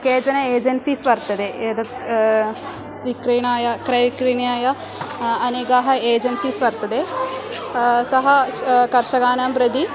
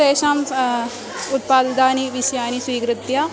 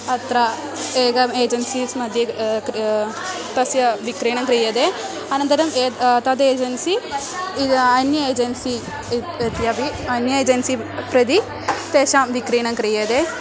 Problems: continuous background conversations